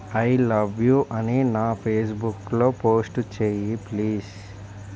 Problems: constant background noise